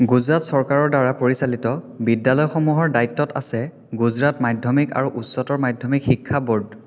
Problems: echo